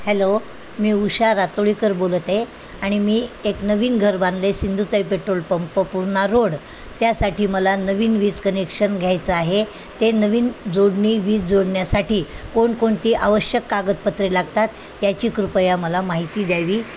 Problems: constant background noise